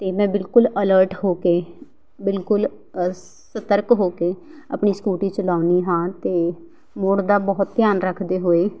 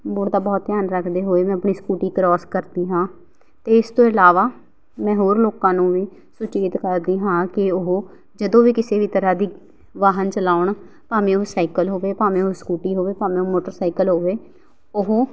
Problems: background sounds at intervals